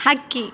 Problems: none marked